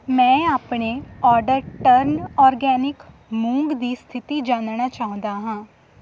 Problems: constant background noise